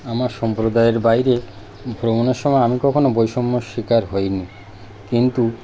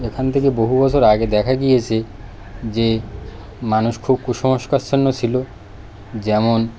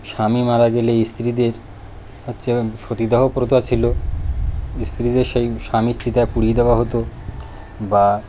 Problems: none marked